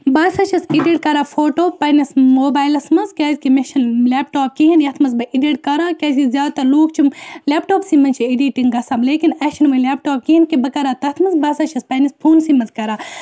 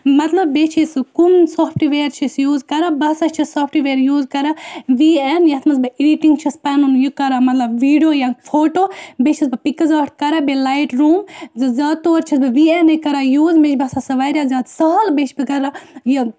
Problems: none marked